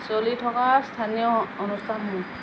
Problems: constant background noise